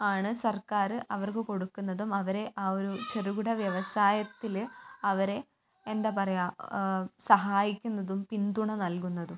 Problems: none marked